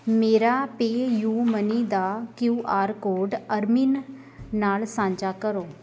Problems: background sounds at intervals